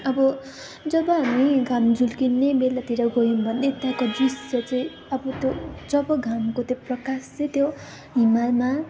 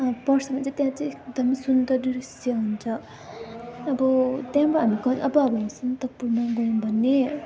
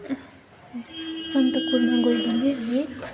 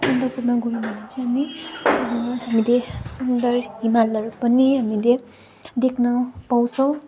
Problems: none marked